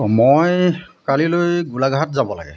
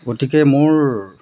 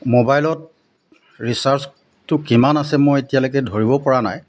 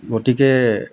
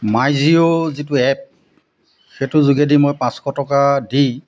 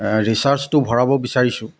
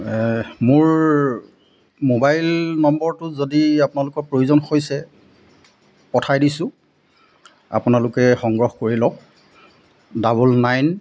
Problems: constant background noise